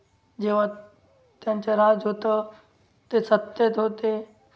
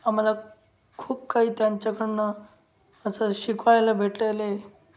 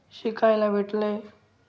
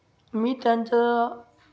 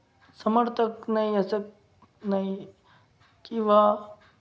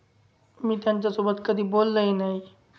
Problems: background sounds at intervals